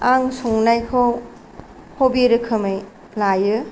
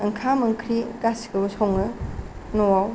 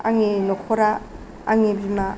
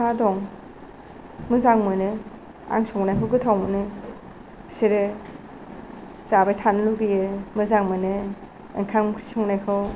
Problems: none marked